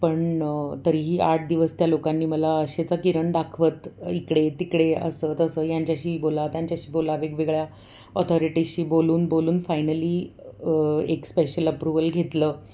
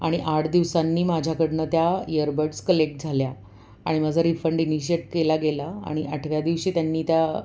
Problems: none marked